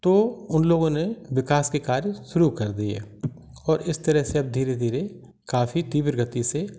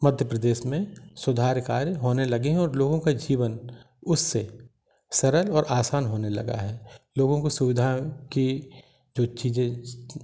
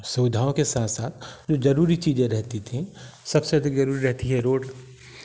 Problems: none marked